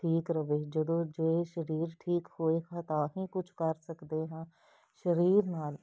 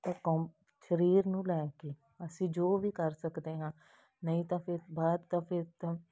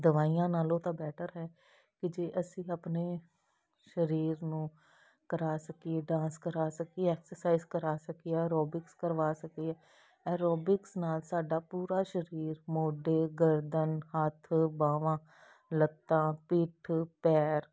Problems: none marked